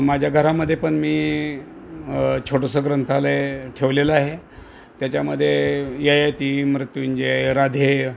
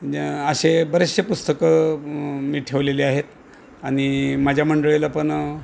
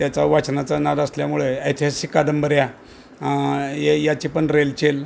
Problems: background sounds at intervals